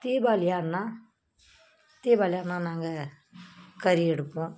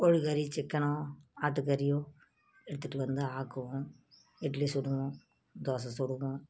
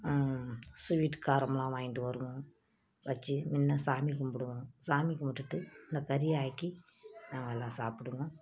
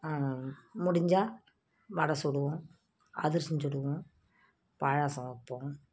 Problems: none marked